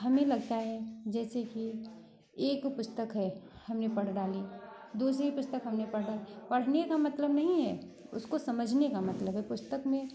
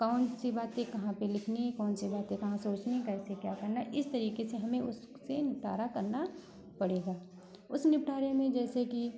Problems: constant background noise, continuous background conversations